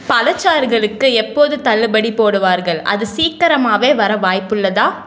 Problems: none marked